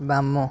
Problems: constant background noise